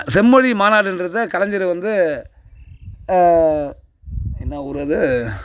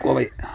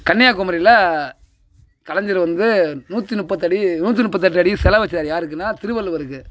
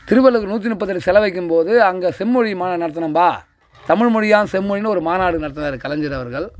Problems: background sounds at intervals, background conversations at intervals